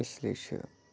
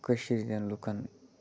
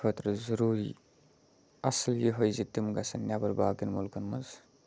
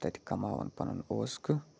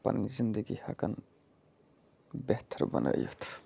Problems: background sounds at intervals, low volume